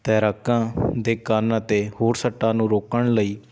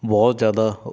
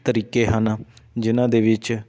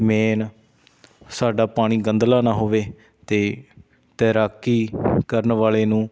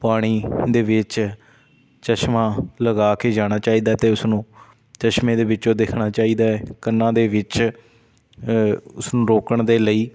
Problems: background sounds at intervals